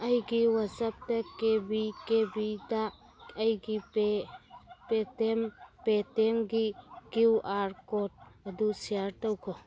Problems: background sounds at intervals, background conversations at intervals